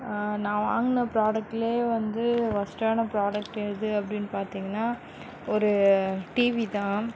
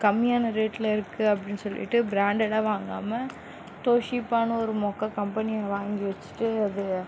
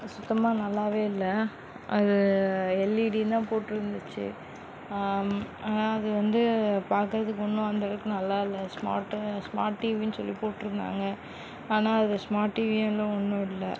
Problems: background sounds at intervals